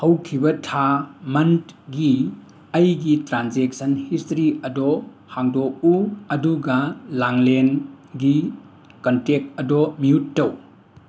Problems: none marked